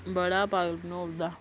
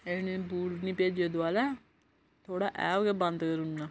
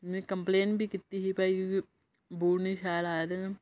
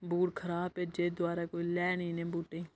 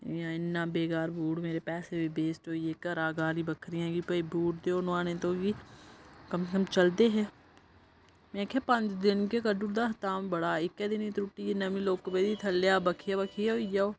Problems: low volume